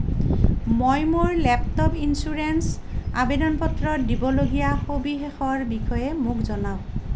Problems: none marked